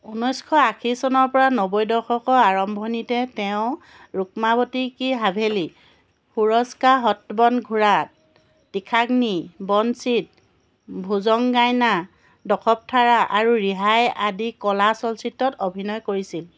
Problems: background sounds at intervals